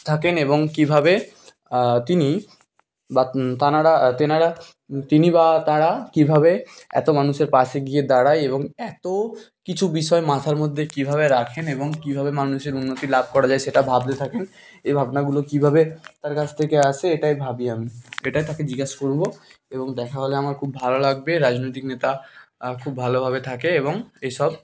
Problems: constant background noise, background conversations at intervals